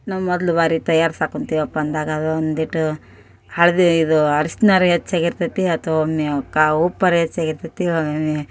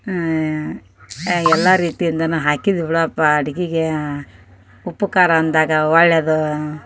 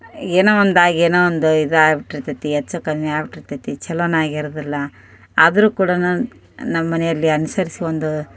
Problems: none marked